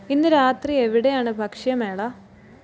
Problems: background sounds at intervals